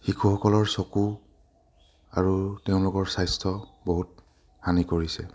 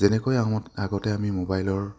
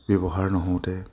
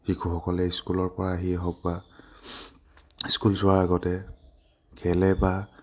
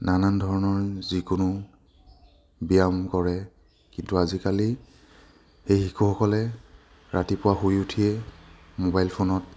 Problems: none marked